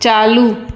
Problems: constant background noise, echo